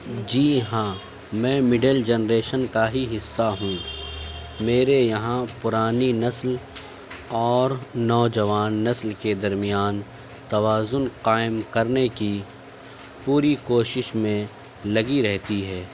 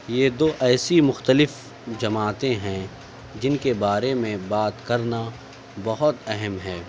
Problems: none marked